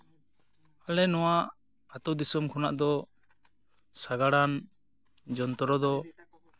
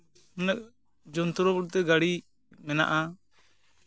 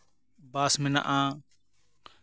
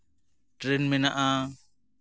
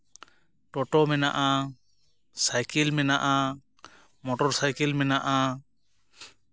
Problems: background sounds at intervals